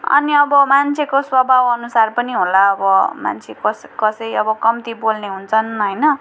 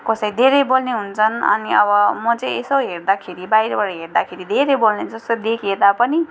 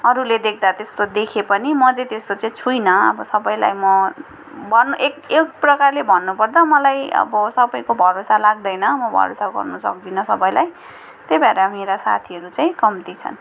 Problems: none marked